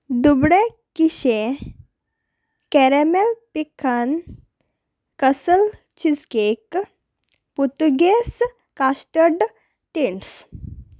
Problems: none marked